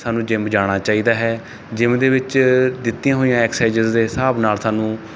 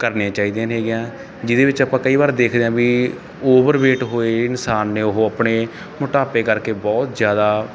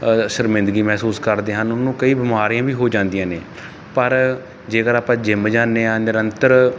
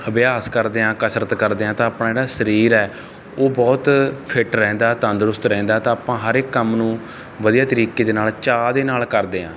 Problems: none marked